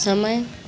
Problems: none marked